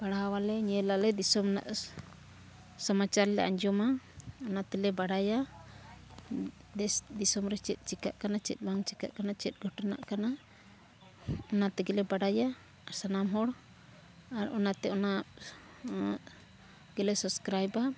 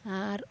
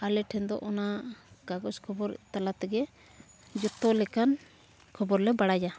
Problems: none marked